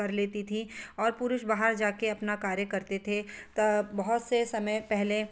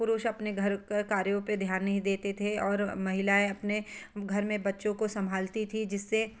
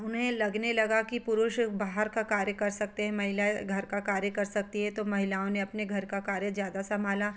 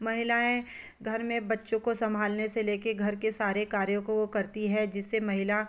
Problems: background sounds at intervals